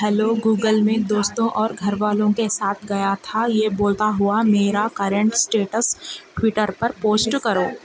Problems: constant background noise, background conversations at intervals